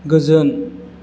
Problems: none marked